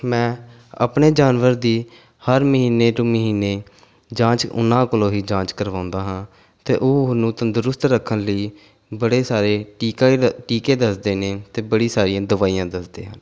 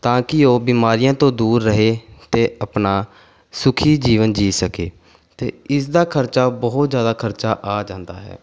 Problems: background sounds at intervals